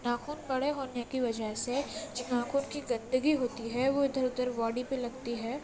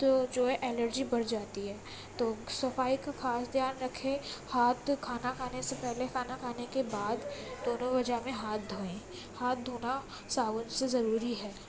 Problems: constant background noise